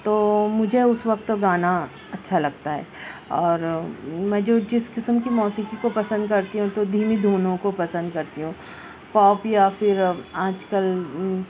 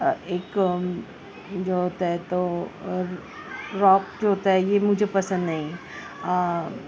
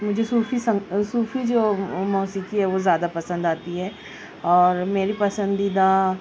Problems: constant background noise